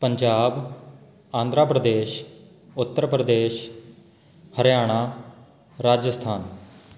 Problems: none marked